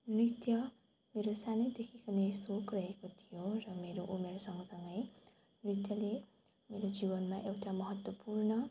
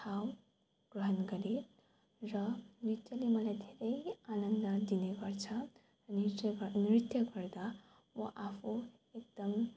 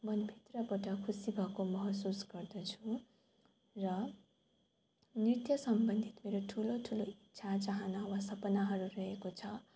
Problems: background sounds at intervals